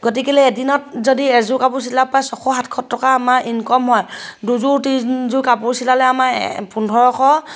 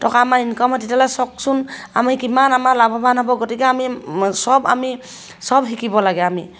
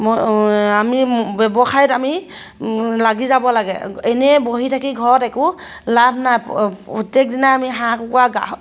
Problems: none marked